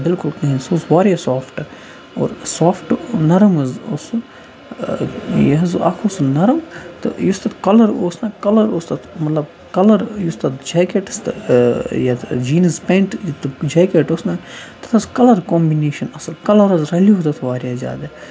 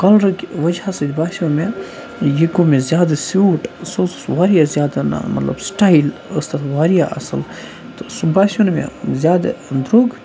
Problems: constant background noise